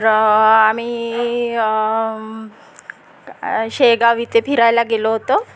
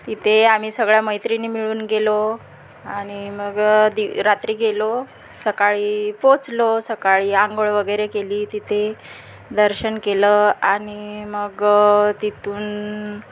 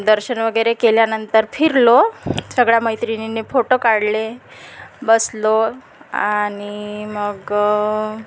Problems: constant background noise